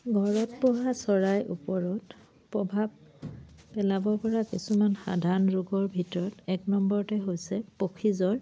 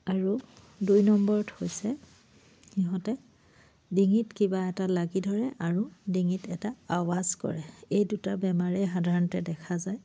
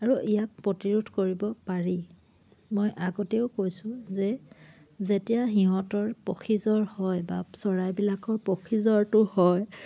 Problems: low volume